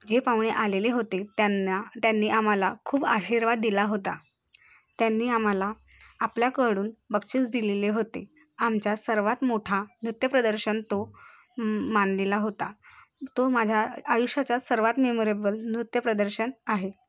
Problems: none marked